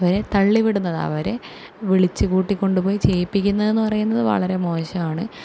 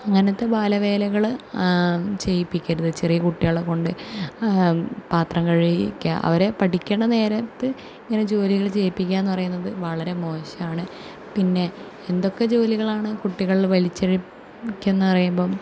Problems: none marked